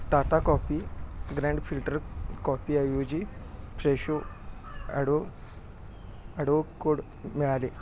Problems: background sounds at intervals